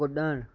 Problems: none marked